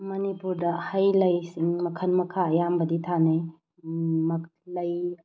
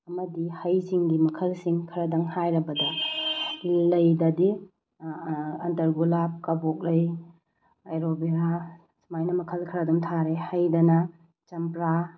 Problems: none marked